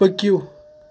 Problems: constant background noise